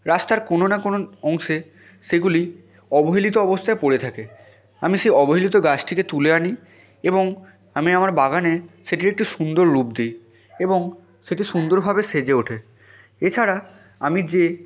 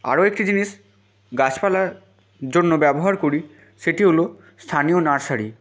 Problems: background sounds at intervals